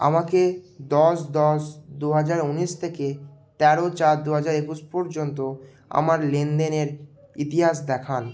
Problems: background sounds at intervals